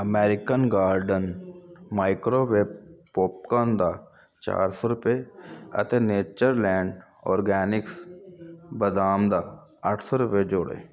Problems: none marked